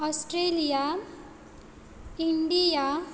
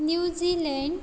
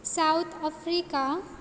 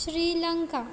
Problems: none marked